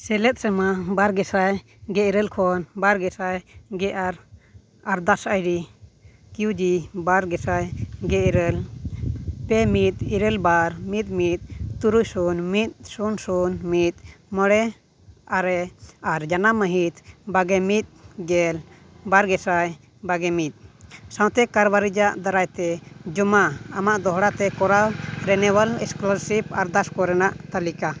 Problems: constant background noise